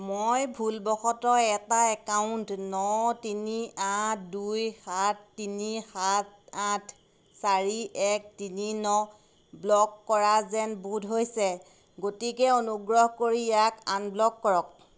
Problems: constant background noise